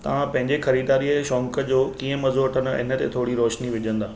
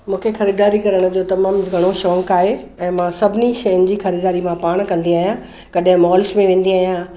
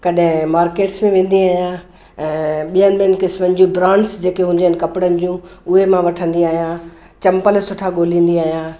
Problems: none marked